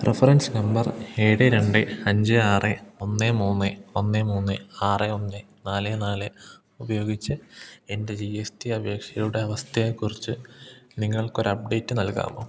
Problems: low volume